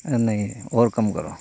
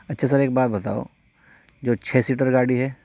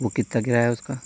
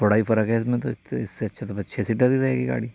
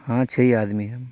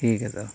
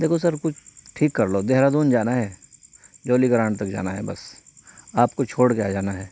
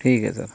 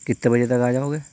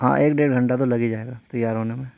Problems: constant background noise, low volume